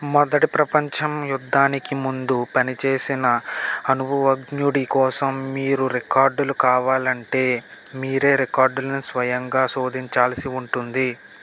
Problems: constant background noise